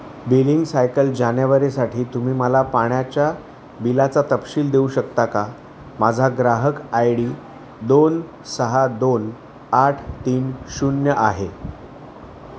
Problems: none marked